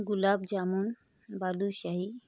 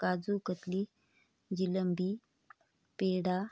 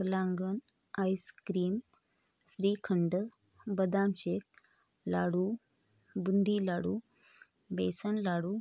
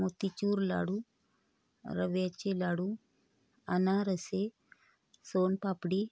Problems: constant background noise, background conversations at intervals